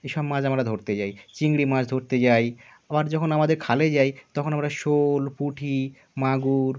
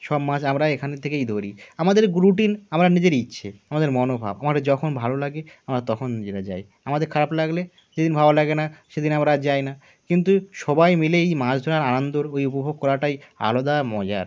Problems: none marked